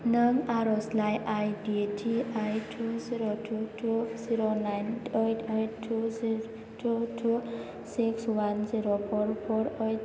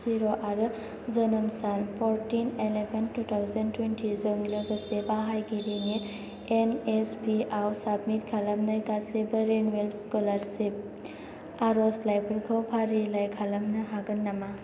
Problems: constant background noise